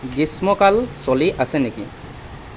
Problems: background sounds at intervals